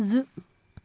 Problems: none marked